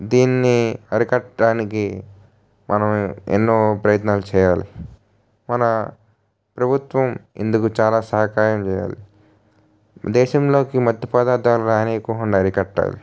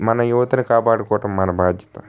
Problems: none marked